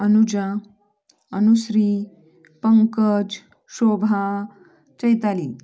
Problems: none marked